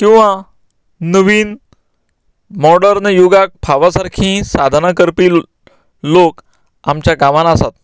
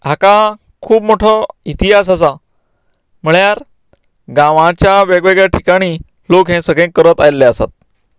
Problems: none marked